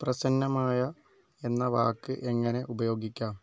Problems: low volume